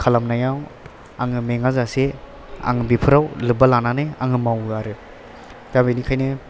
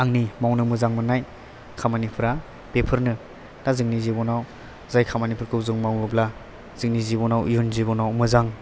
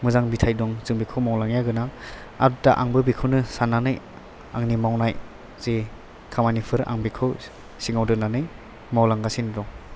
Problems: background sounds at intervals